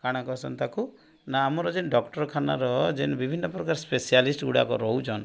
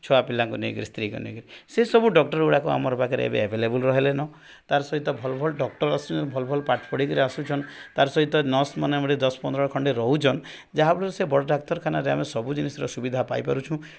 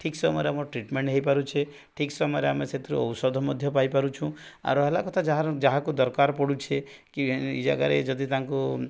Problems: none marked